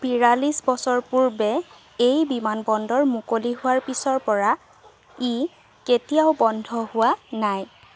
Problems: constant background noise